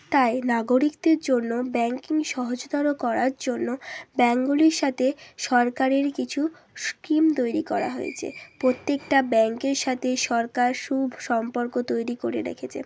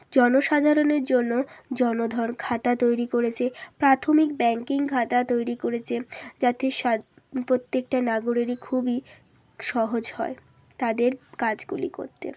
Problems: none marked